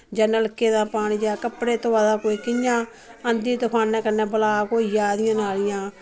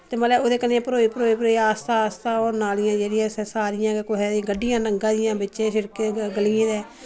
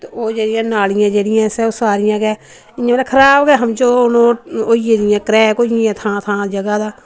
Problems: none marked